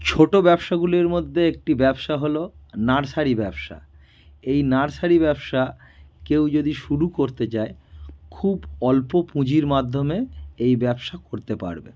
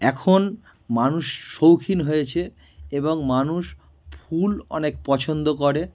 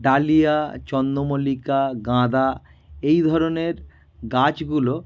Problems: background sounds at intervals